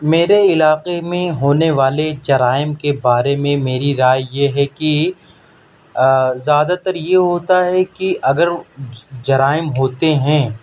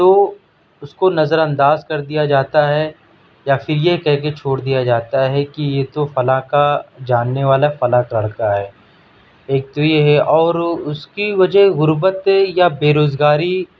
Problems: none marked